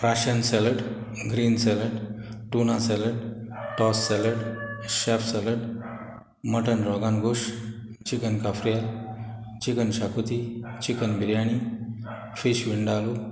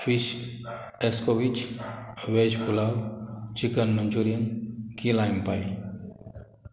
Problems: background sounds at intervals